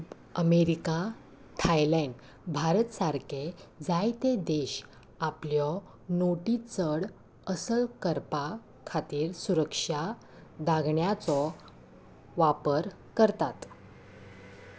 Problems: constant background noise